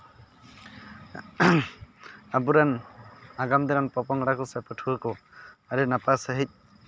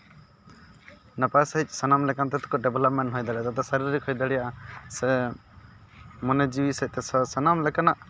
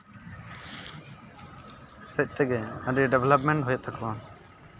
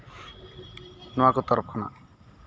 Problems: constant background noise, background conversations at intervals